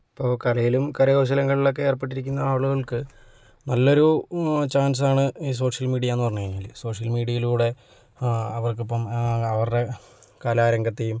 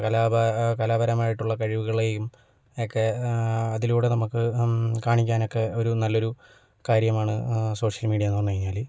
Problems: none marked